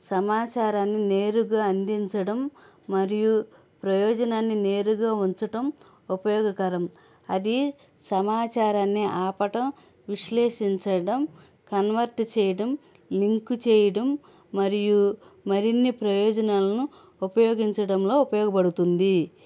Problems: none marked